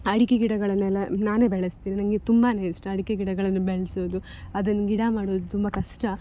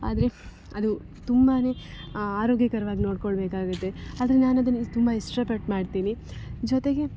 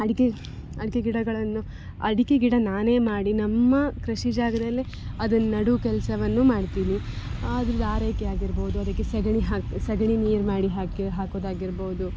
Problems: background sounds at intervals